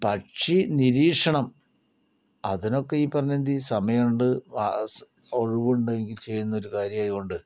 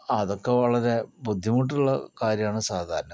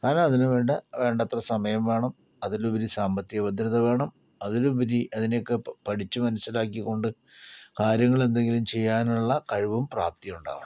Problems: low volume